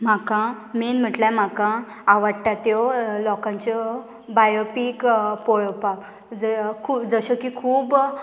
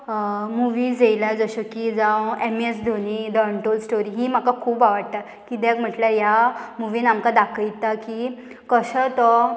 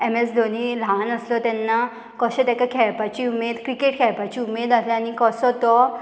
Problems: none marked